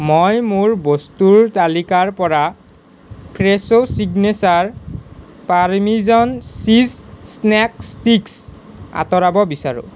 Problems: constant background noise